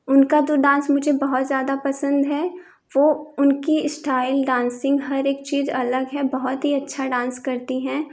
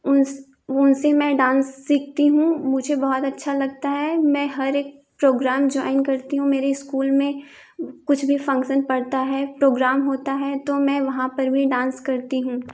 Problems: none marked